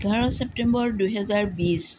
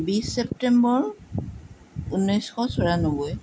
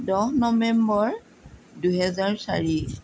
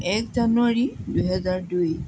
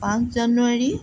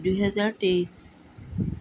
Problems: none marked